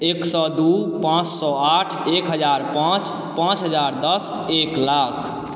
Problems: none marked